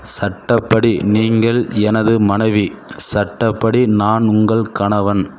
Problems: constant background noise